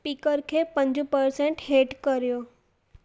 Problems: echo